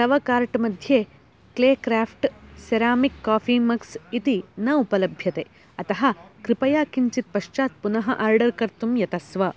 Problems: none marked